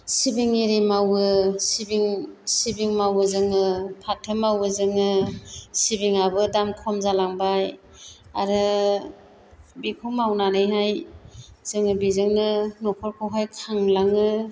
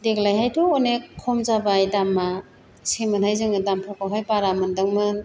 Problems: constant background noise